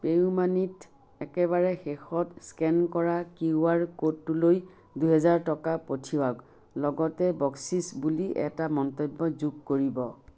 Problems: background sounds at intervals